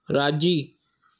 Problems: none marked